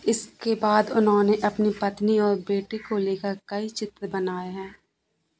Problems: constant background noise